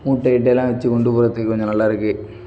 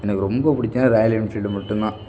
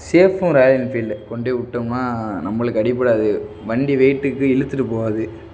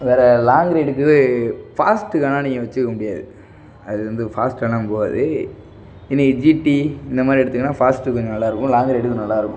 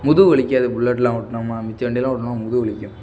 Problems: background sounds at intervals